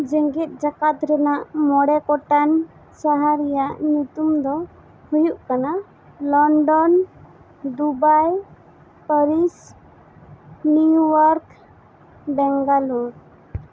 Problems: constant background noise